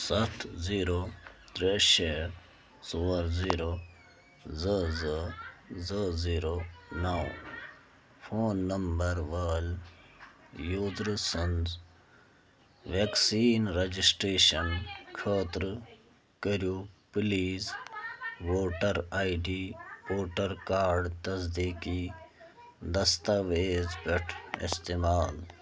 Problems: constant background noise